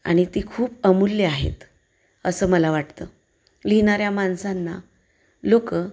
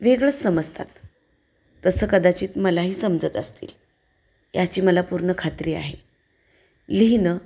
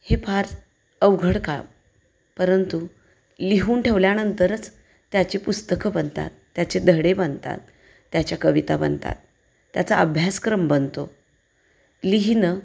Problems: none marked